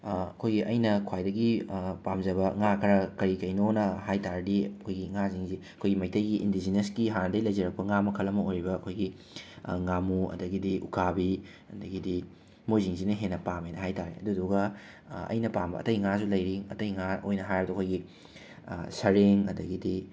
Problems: background sounds at intervals